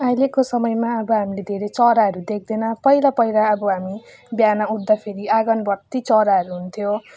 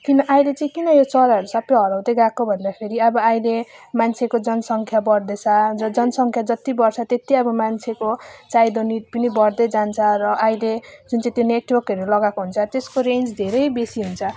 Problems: none marked